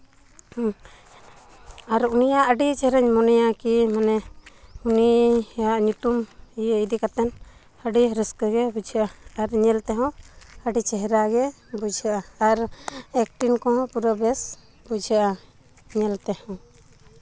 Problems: none marked